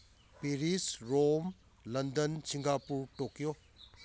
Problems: none marked